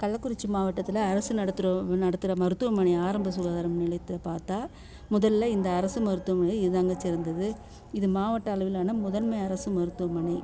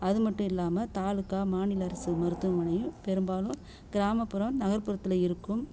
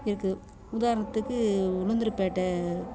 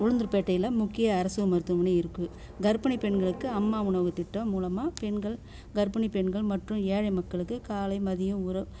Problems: none marked